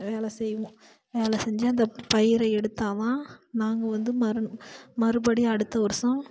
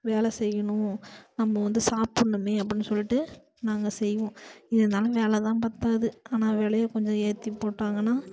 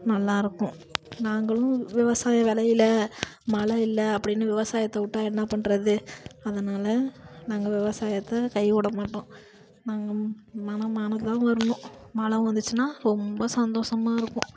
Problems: constant background noise